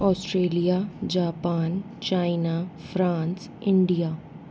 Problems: constant background noise